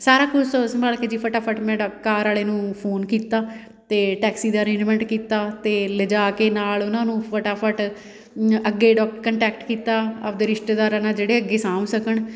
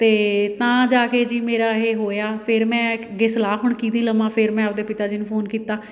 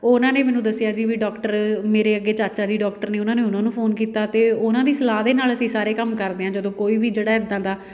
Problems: background sounds at intervals